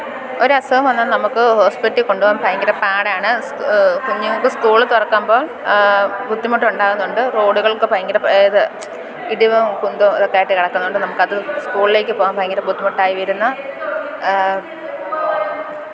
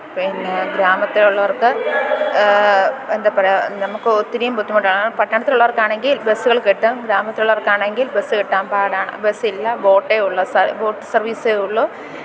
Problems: constant background noise